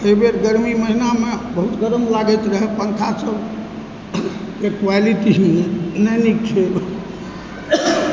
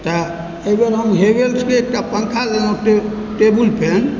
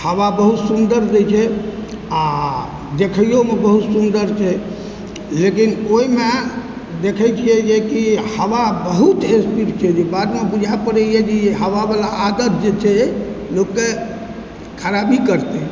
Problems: constant background noise, background conversations at intervals